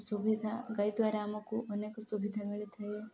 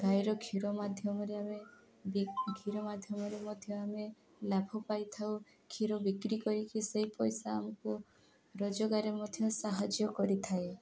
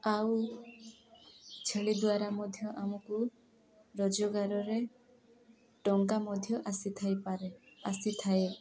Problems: background conversations at intervals